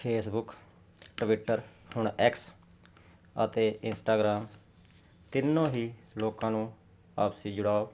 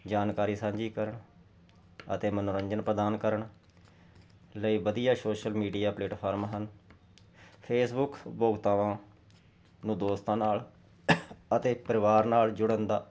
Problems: none marked